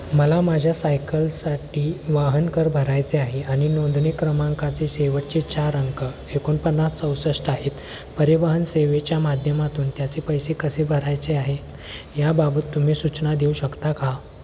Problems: constant background noise, background conversations at intervals